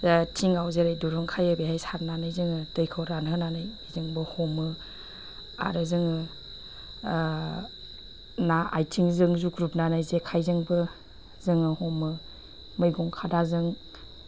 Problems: none marked